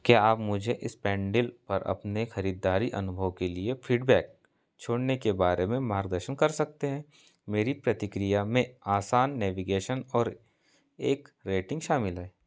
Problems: none marked